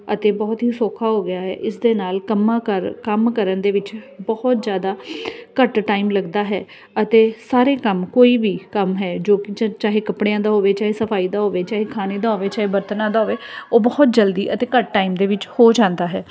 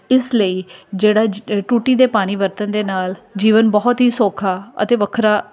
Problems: none marked